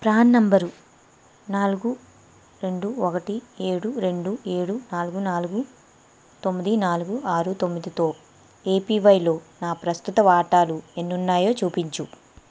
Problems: constant background noise